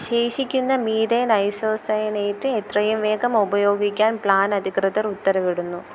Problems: none marked